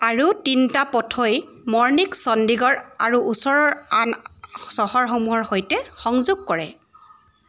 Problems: constant background noise